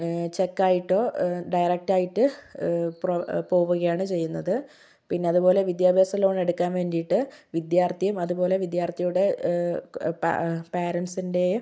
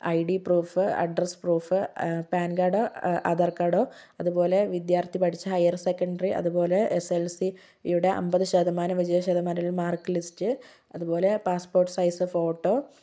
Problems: none marked